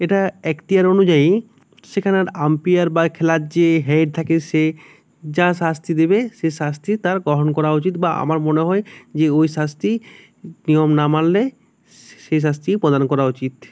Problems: none marked